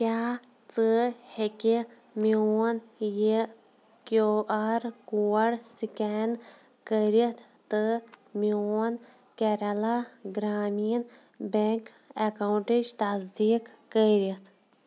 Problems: background sounds at intervals